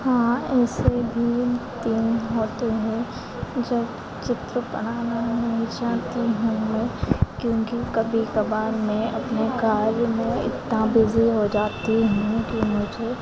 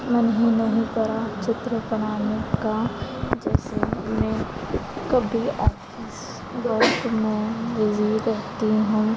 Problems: constant background noise, continuous background conversations